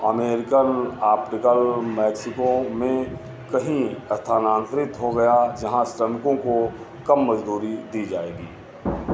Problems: constant background noise